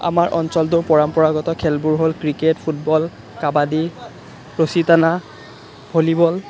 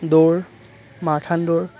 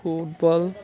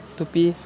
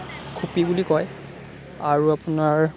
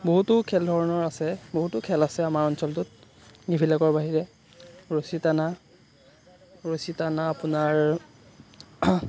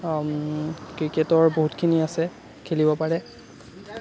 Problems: constant background noise